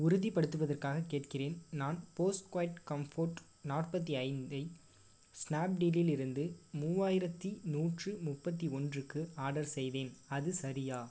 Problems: low volume